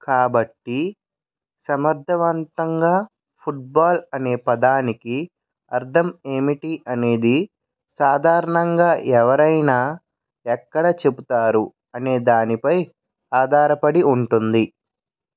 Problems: none marked